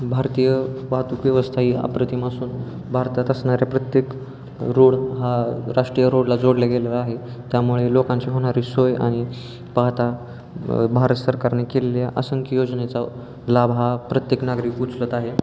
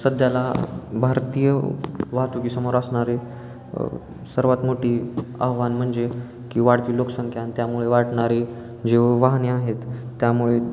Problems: constant background noise